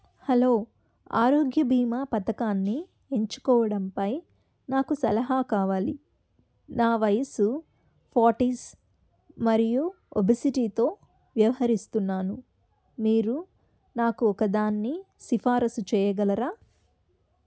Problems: none marked